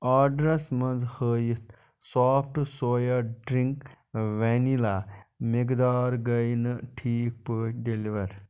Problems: none marked